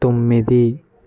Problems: none marked